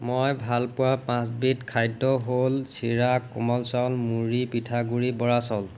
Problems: none marked